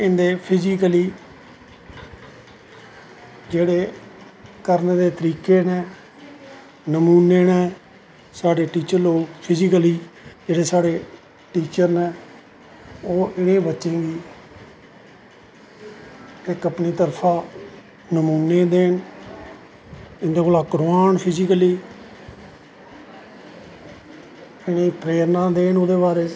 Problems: echo